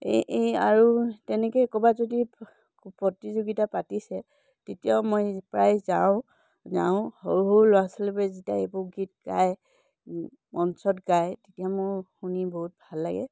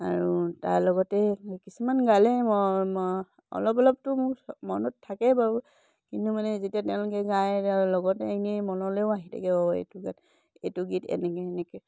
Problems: none marked